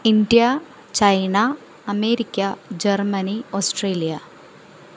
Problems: none marked